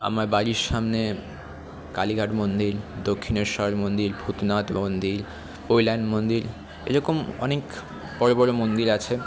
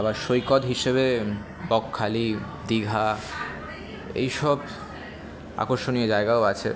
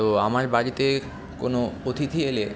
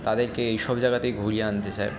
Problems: constant background noise, background conversations at intervals